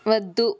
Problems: constant background noise